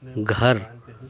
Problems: background conversations at intervals